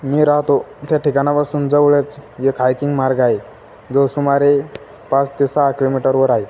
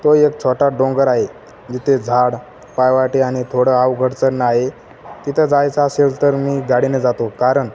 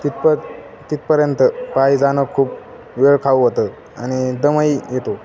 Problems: constant background noise